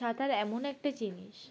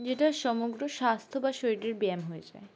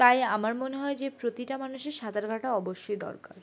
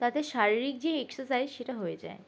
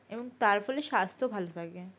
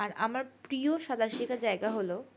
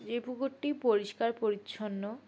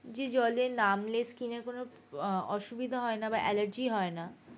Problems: constant background noise